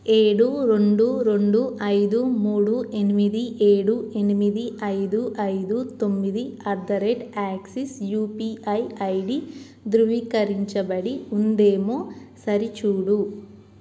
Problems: none marked